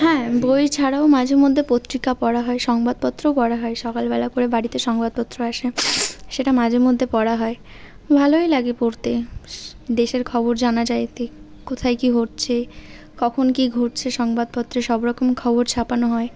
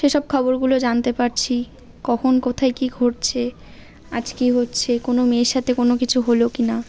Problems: constant background noise